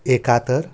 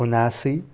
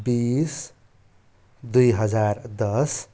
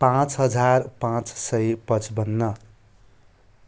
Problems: constant background noise